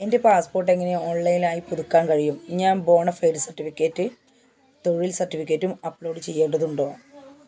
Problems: constant background noise